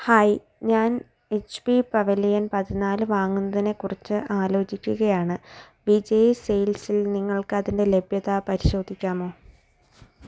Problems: none marked